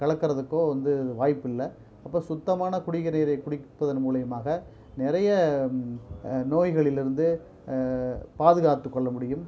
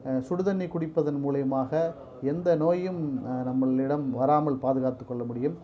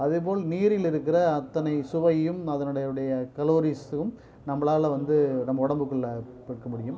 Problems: low volume